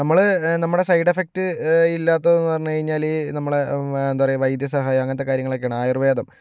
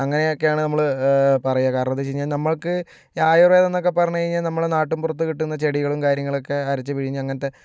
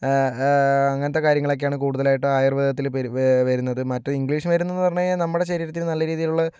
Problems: none marked